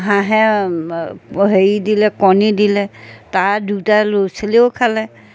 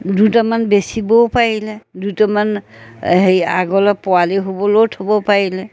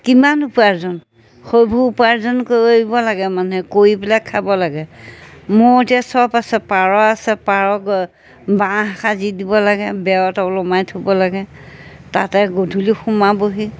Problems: none marked